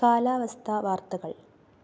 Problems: low volume